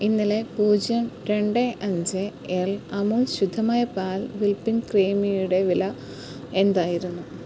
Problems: constant background noise